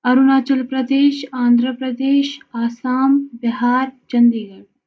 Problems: none marked